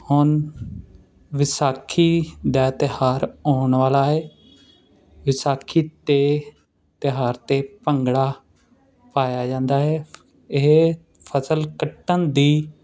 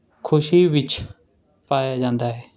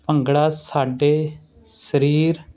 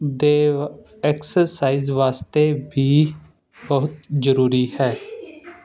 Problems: constant background noise